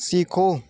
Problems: none marked